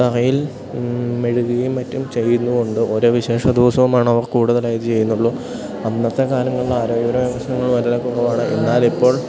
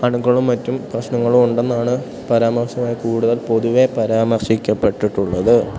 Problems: background sounds at intervals